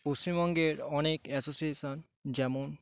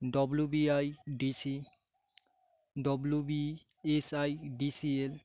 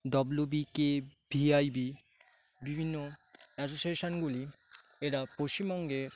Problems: background sounds at intervals, background conversations at intervals